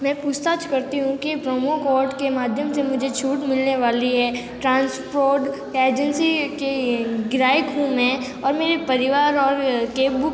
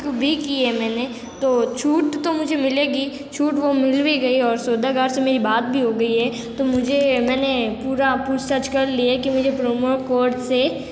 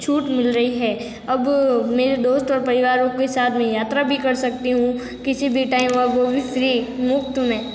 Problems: constant background noise